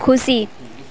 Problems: background sounds at intervals, continuous background conversations